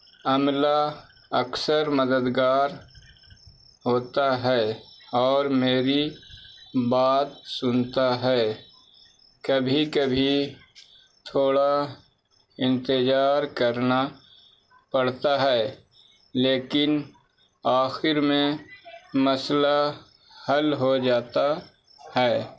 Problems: background sounds at intervals